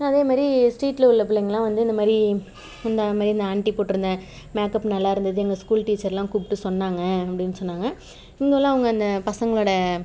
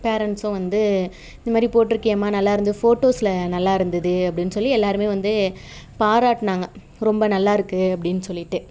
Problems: background sounds at intervals, background conversations at intervals